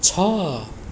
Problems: background sounds at intervals